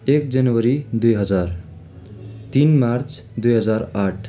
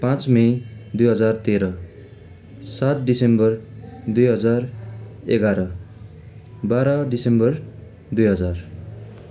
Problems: constant background noise